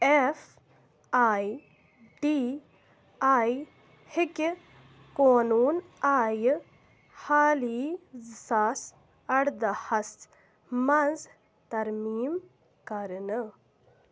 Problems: background sounds at intervals